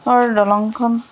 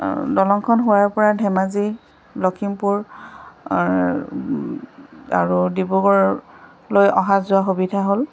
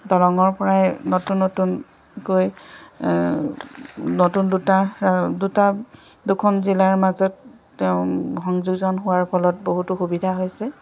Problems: constant background noise